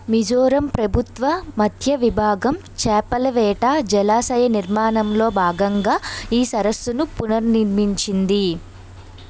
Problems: background sounds at intervals